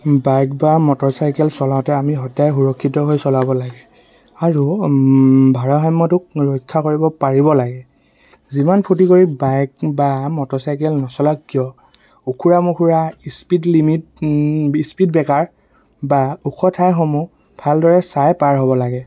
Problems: constant background noise